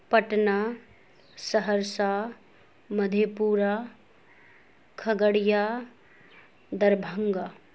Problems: constant background noise